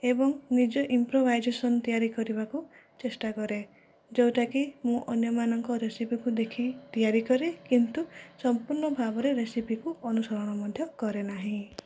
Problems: low volume